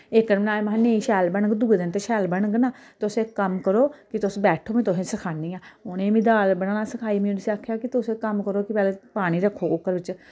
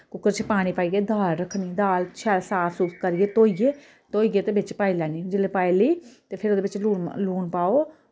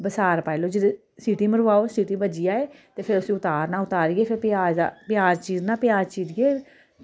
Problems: none marked